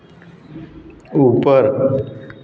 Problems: background sounds at intervals, background conversations at intervals, echo